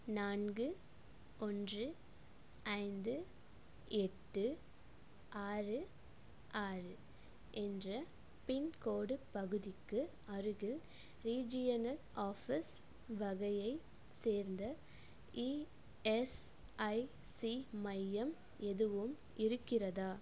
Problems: low volume